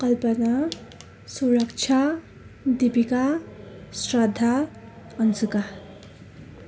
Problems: constant background noise